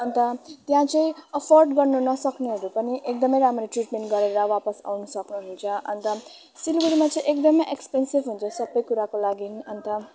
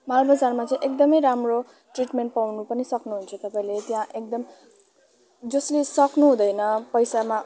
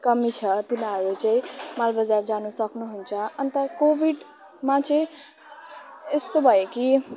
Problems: none marked